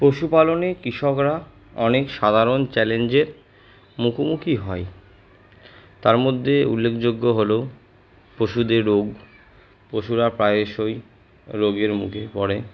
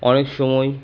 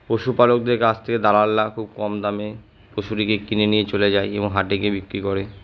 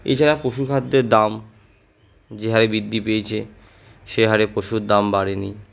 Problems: none marked